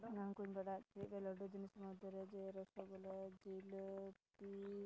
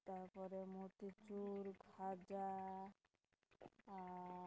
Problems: background sounds at intervals, low volume